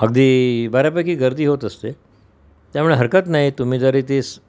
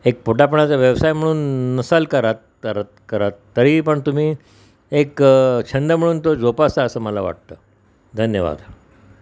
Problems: constant background noise